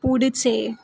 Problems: none marked